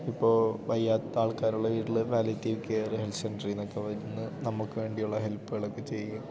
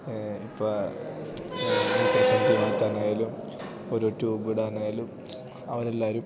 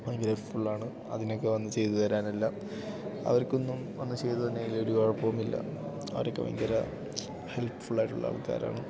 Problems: none marked